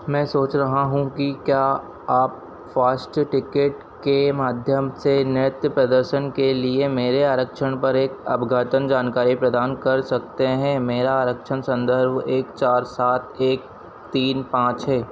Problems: none marked